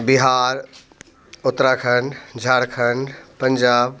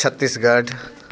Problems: constant background noise, background conversations at intervals